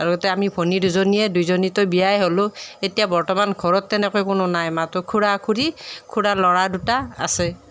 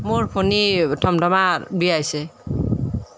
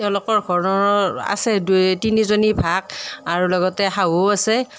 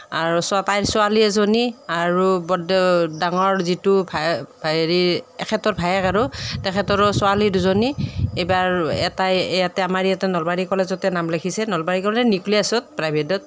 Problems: background sounds at intervals